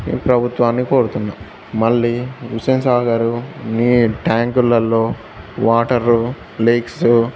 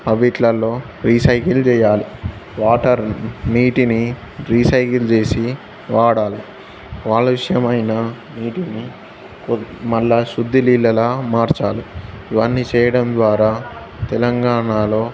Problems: constant background noise, background conversations at intervals